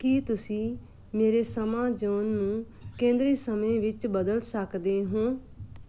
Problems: background sounds at intervals